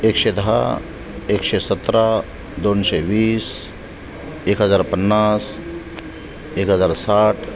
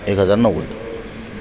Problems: constant background noise, background conversations at intervals